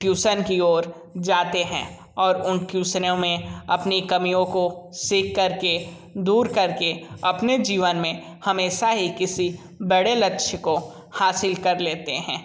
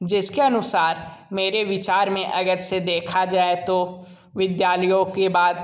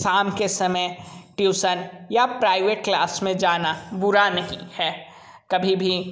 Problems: constant background noise